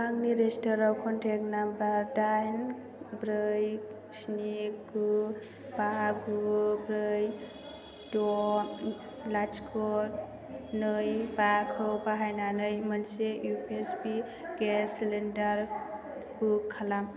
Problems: constant background noise